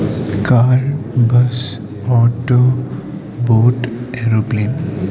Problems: background sounds at intervals, low volume